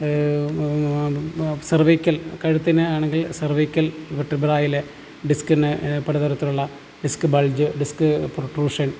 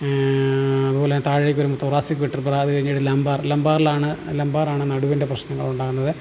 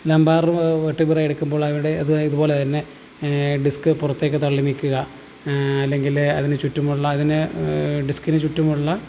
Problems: low volume